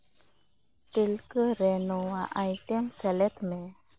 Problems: background sounds at intervals